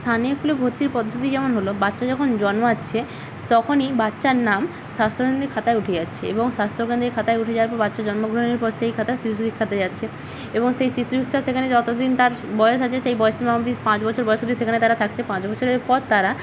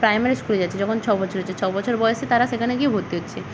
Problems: none marked